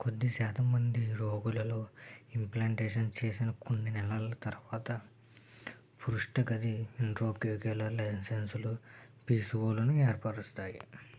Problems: none marked